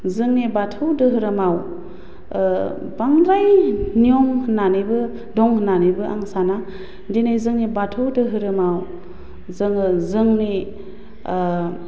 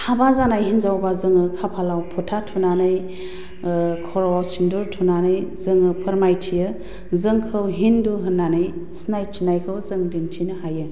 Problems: constant background noise